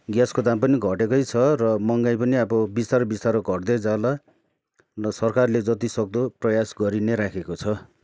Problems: none marked